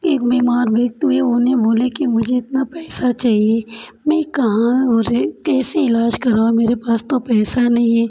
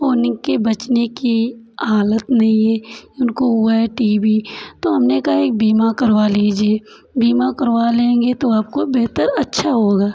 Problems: constant background noise, background conversations at intervals